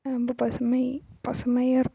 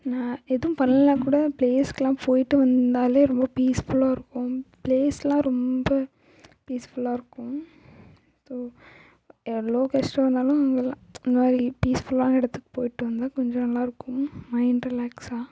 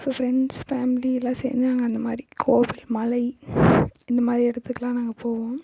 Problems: echo, low volume